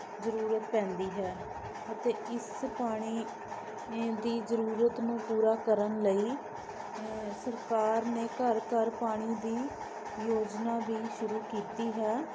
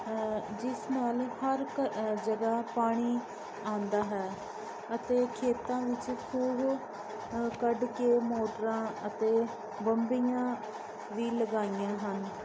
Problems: constant background noise